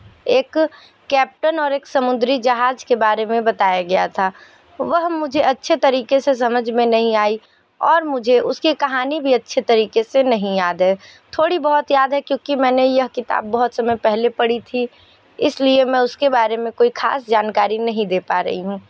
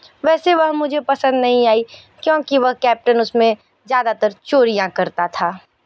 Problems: none marked